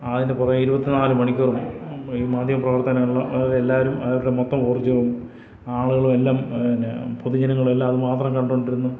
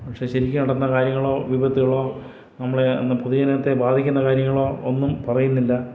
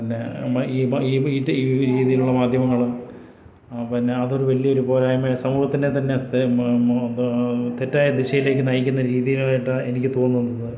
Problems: none marked